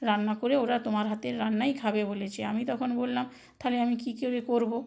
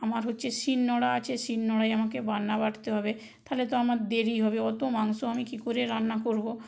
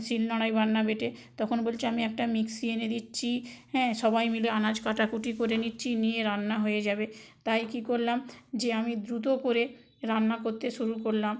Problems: none marked